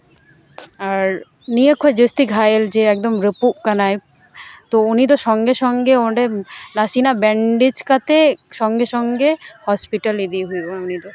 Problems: constant background noise, background conversations at intervals